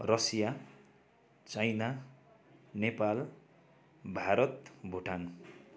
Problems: none marked